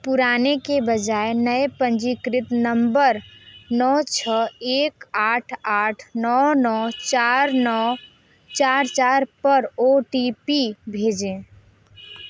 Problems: background sounds at intervals